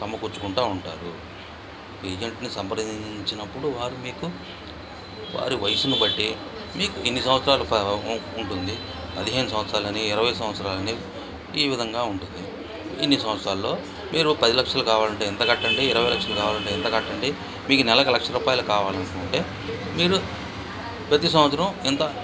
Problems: constant background noise